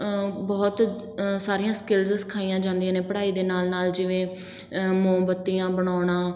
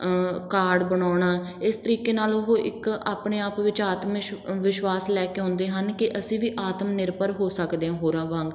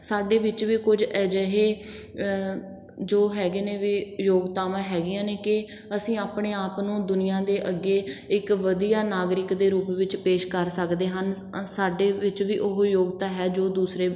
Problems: background sounds at intervals